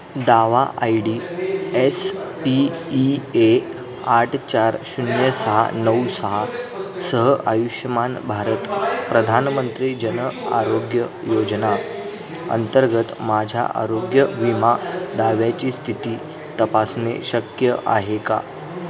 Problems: constant background noise, continuous background conversations